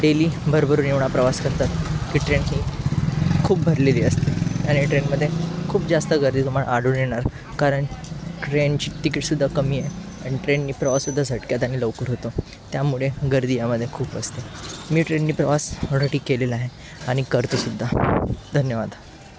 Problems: none marked